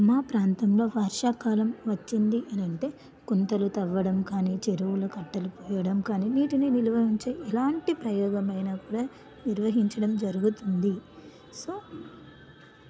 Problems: none marked